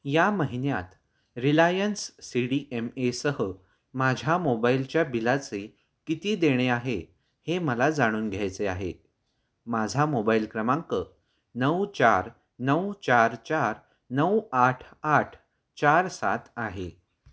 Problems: none marked